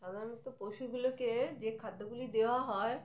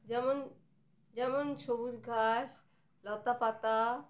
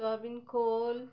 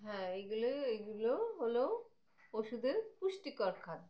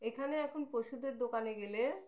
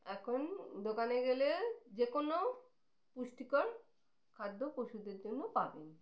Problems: none marked